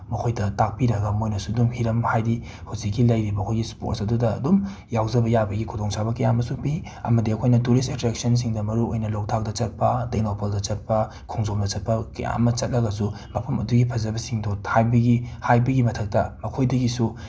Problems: none marked